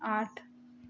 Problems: constant background noise